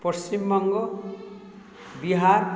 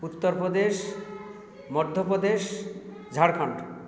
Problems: constant background noise, background conversations at intervals